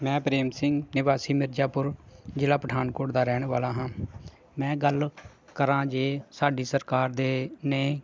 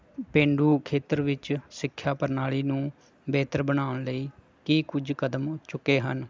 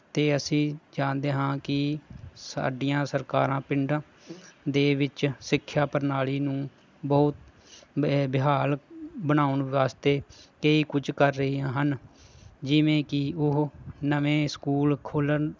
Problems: constant background noise